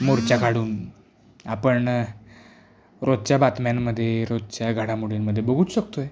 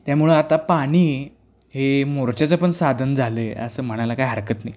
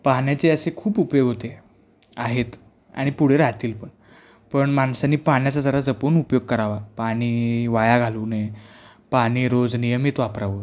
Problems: background sounds at intervals